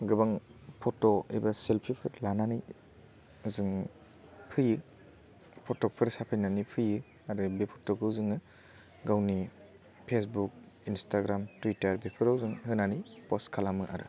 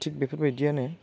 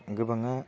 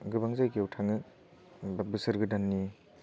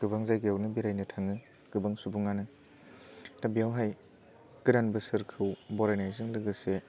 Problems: none marked